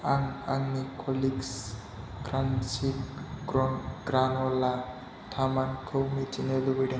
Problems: low volume